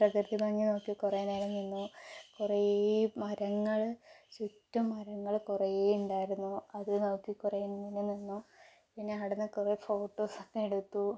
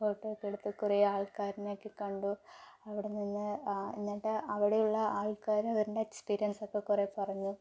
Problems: low volume